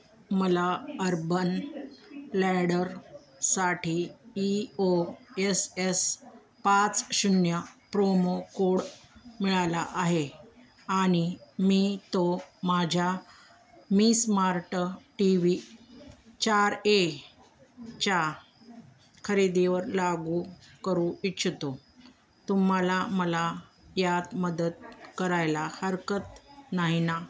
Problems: constant background noise, continuous background conversations